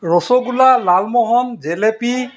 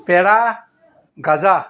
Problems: background sounds at intervals